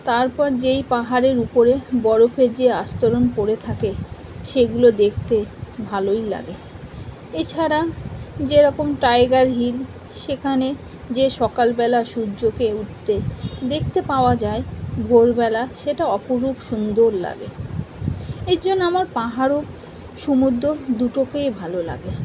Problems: constant background noise